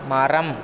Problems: constant background noise